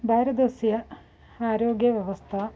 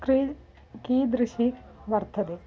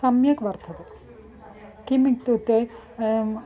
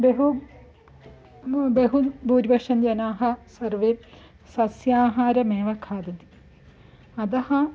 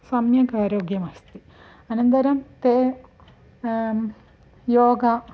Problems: none marked